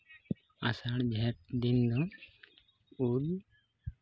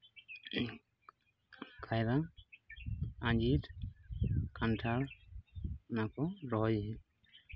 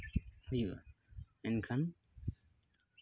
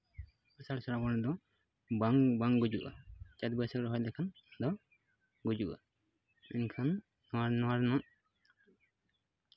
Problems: none marked